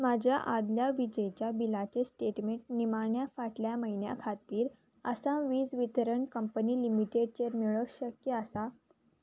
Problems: none marked